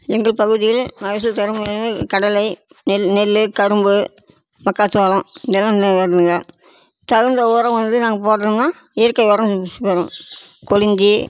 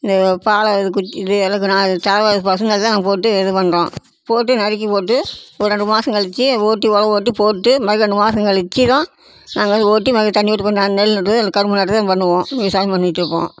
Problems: constant background noise